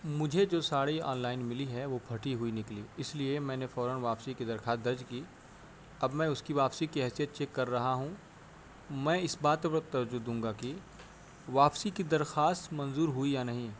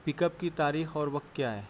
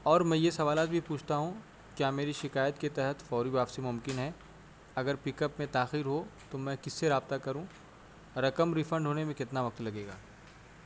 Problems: constant background noise